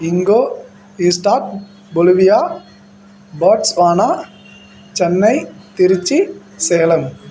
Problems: constant background noise